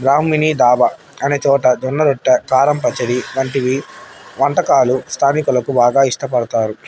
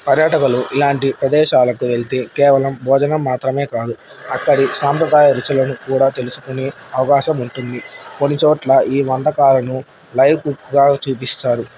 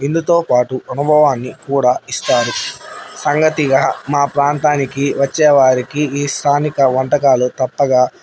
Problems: none marked